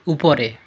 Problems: continuous background conversations